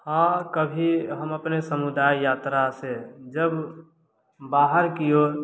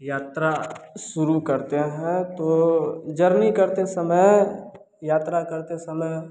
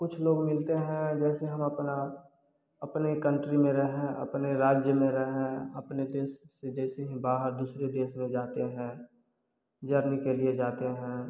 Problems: none marked